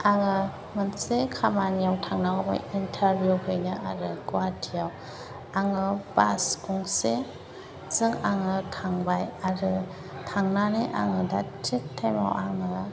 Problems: constant background noise